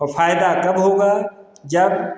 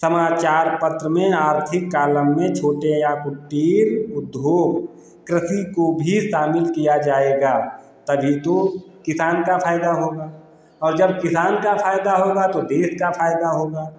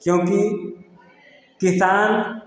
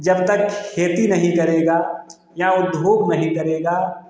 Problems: constant background noise